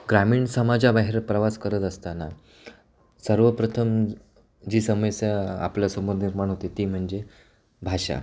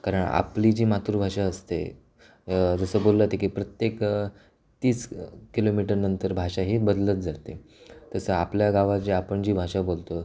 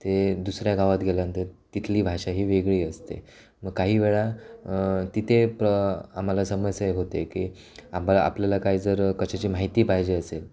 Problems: constant background noise, continuous background conversations